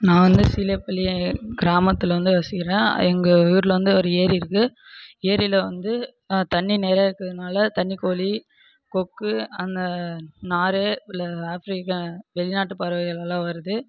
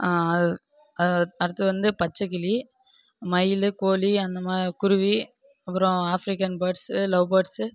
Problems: background conversations at intervals